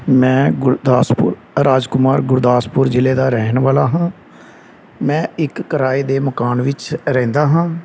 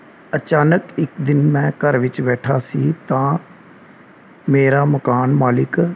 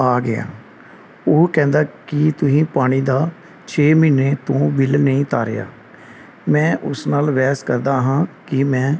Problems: none marked